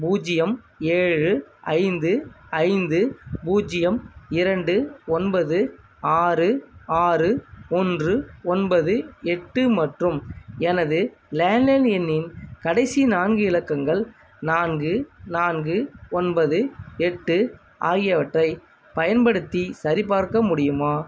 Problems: constant background noise